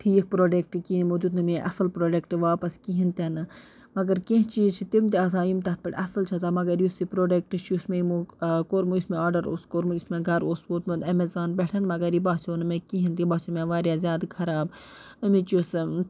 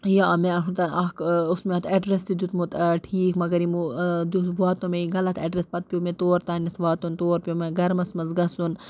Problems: constant background noise